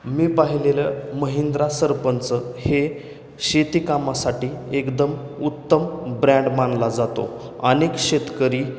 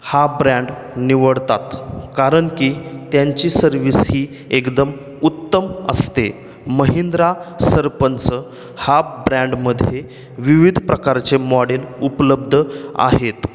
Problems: none marked